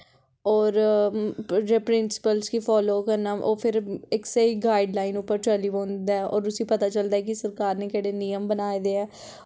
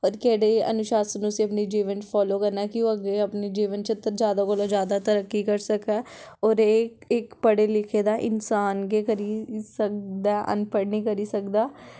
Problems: background conversations at intervals